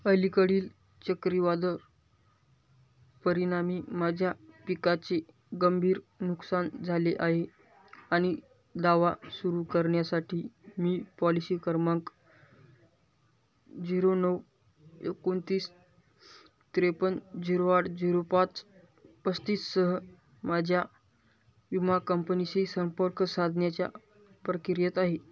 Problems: none marked